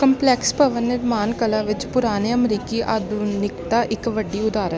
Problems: constant background noise